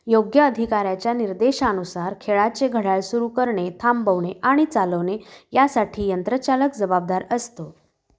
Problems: none marked